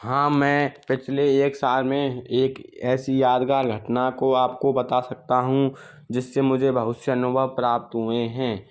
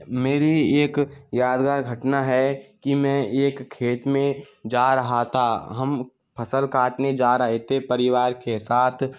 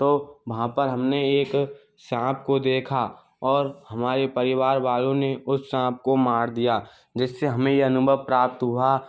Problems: background sounds at intervals